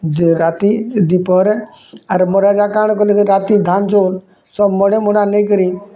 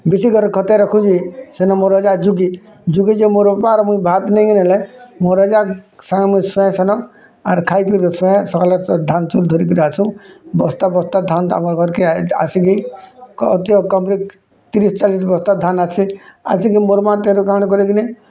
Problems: constant background noise